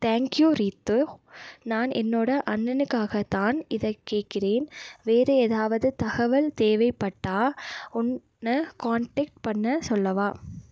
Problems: none marked